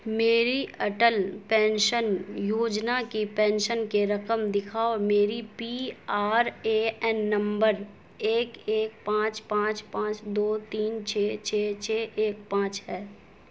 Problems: constant background noise